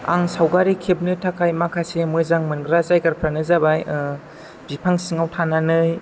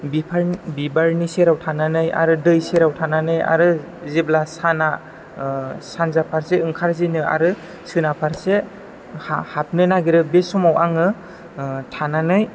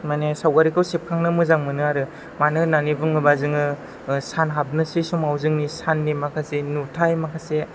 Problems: none marked